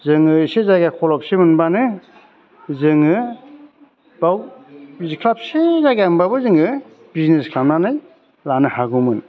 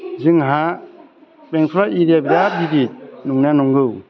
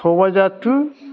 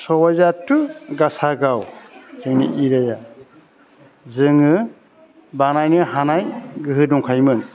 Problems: constant background noise